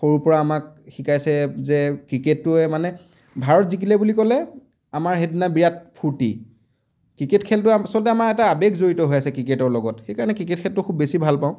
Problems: none marked